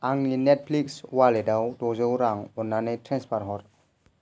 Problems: none marked